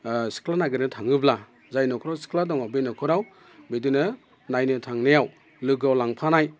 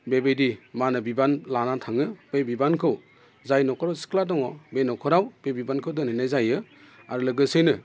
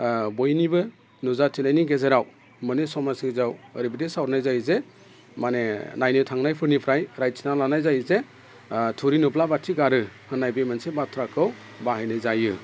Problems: constant background noise